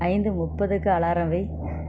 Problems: constant background noise